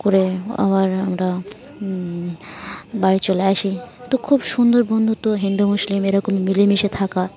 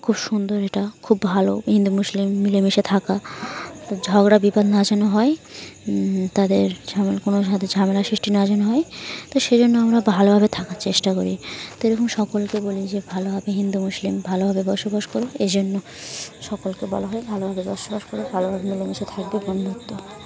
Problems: none marked